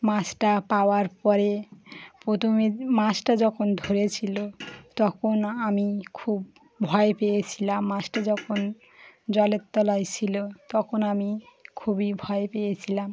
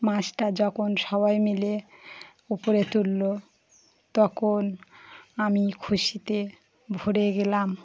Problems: none marked